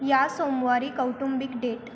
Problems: constant background noise, continuous background conversations